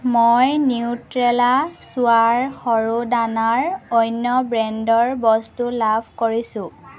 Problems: constant background noise, background conversations at intervals